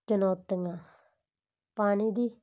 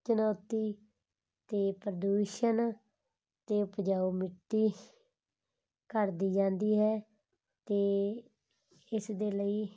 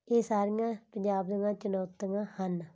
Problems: none marked